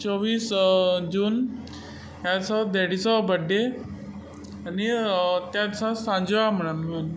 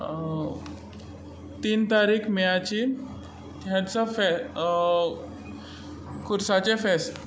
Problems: constant background noise